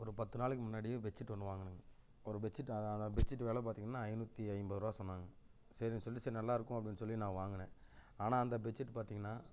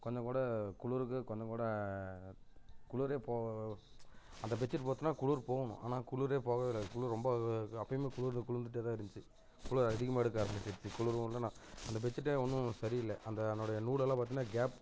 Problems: constant background noise, low volume